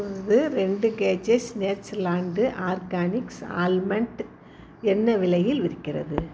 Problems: none marked